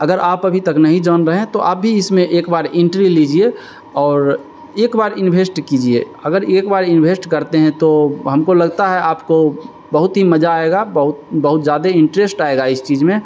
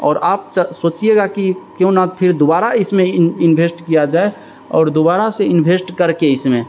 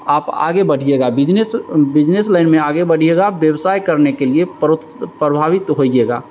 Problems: constant background noise